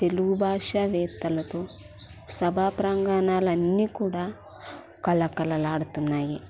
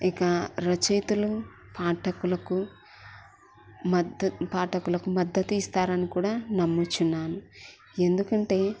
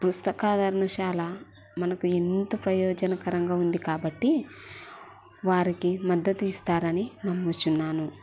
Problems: none marked